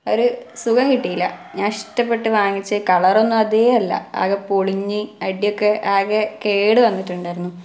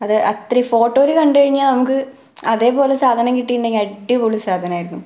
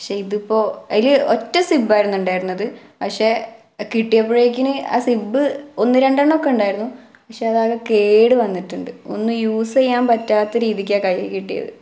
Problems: background sounds at intervals